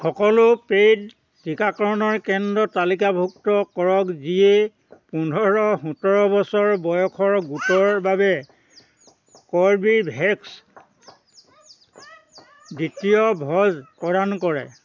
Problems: constant background noise, continuous background conversations